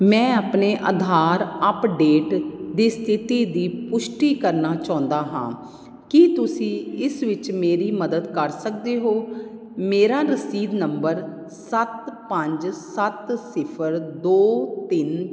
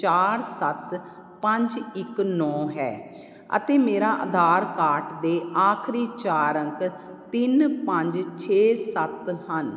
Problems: none marked